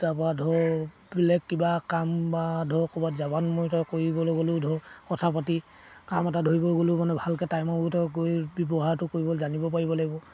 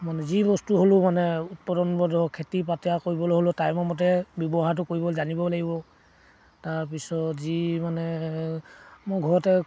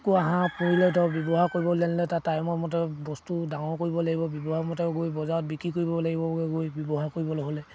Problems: none marked